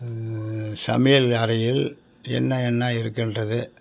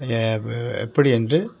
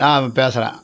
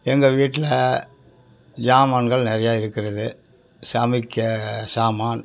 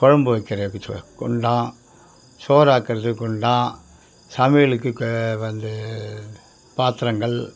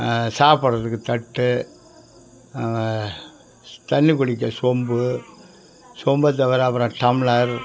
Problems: background sounds at intervals, background conversations at intervals